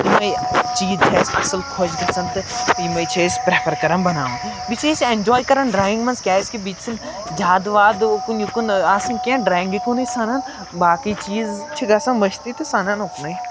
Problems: background sounds at intervals